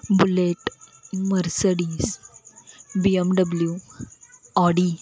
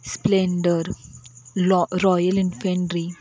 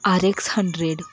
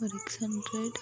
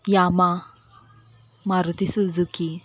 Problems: none marked